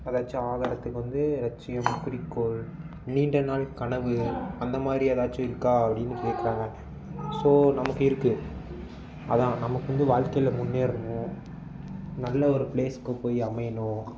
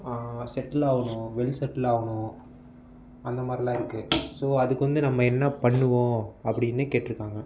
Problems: background sounds at intervals